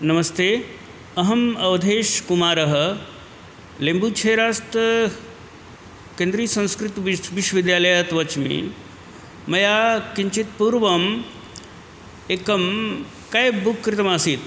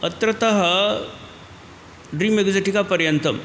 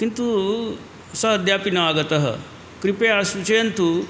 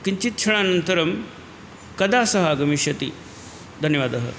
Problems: constant background noise